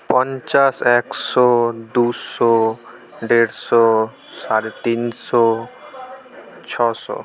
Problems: none marked